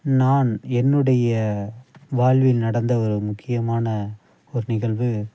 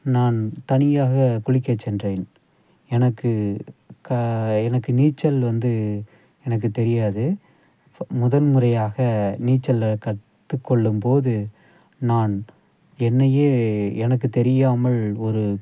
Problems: background sounds at intervals, low volume